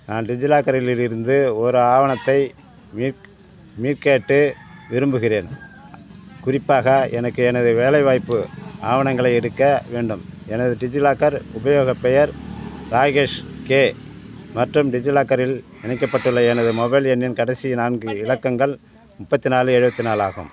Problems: none marked